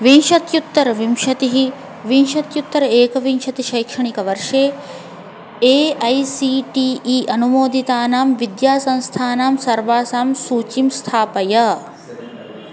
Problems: constant background noise, continuous background conversations